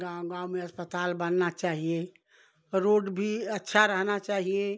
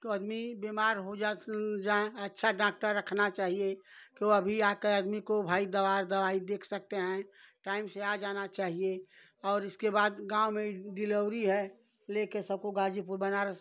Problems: background sounds at intervals